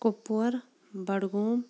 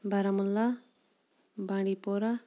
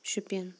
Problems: background sounds at intervals